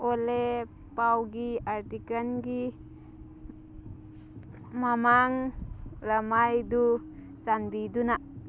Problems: constant background noise